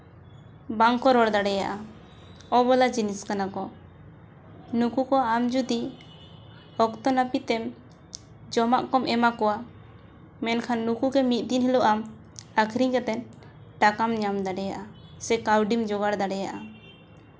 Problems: none marked